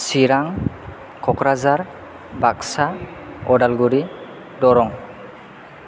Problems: constant background noise